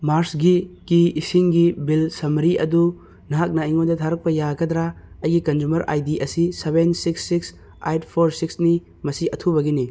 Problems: background sounds at intervals